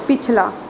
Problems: background sounds at intervals